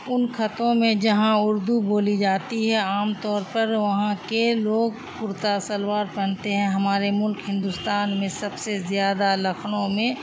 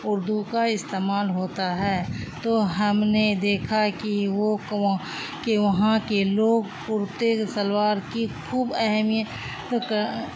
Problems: constant background noise